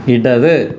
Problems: constant background noise